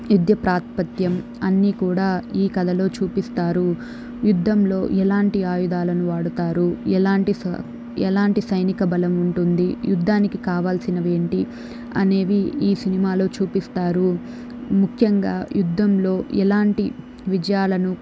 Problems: none marked